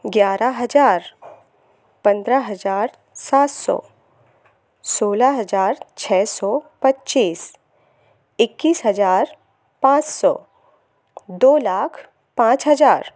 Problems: none marked